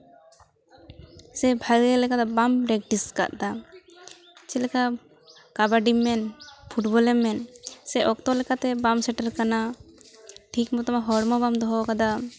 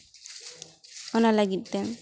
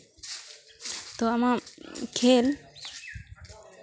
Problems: none marked